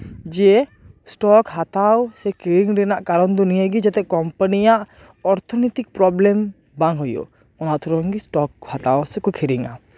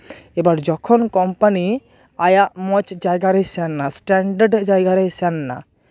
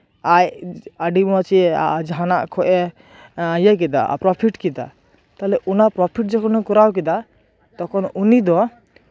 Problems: background sounds at intervals